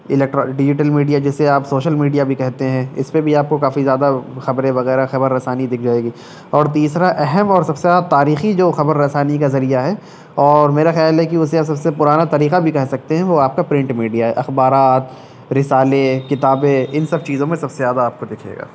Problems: none marked